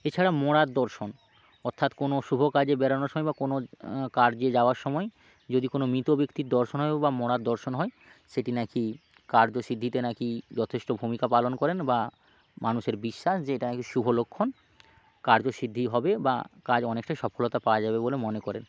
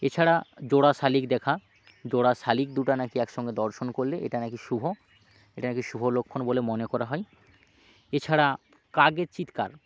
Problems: constant background noise